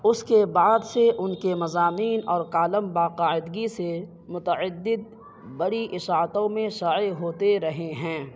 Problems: background sounds at intervals, low volume